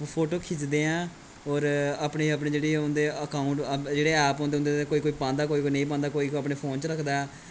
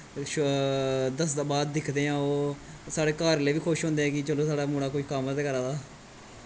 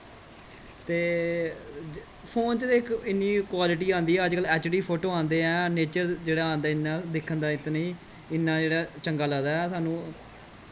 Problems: constant background noise, background conversations at intervals